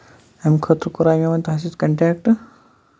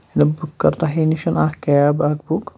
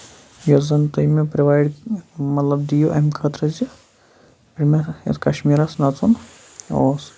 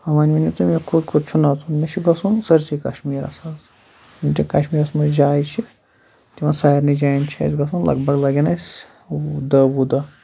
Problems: background sounds at intervals